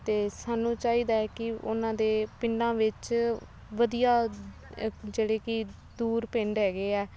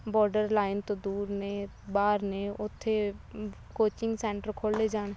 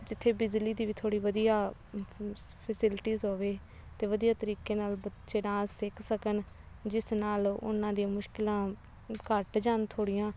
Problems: background sounds at intervals